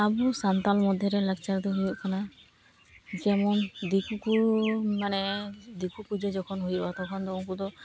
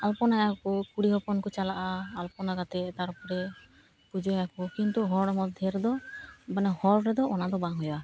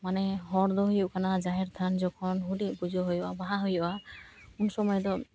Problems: constant background noise